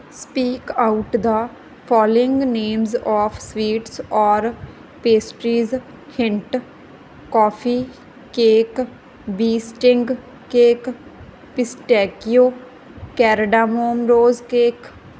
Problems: background sounds at intervals